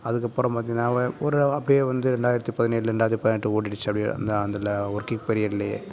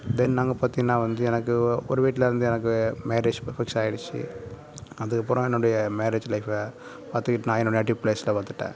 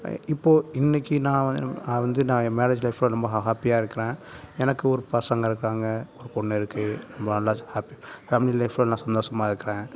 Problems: none marked